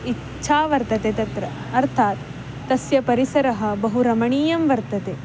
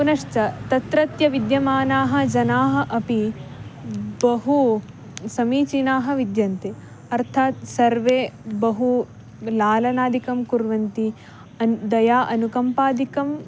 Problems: background sounds at intervals